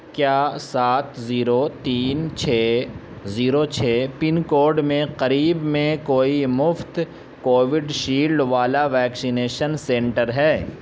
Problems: constant background noise